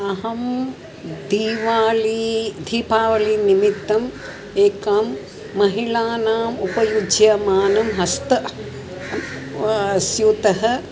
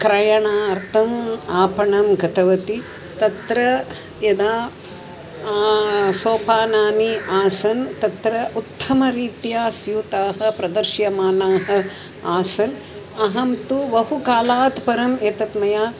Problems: constant background noise